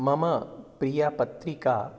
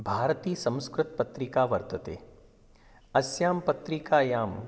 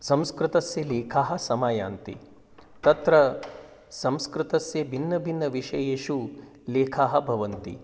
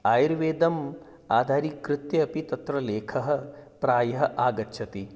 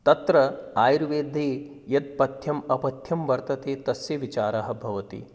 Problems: background sounds at intervals